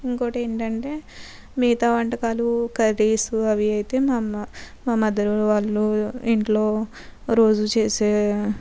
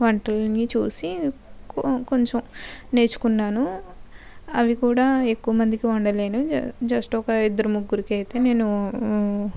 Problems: none marked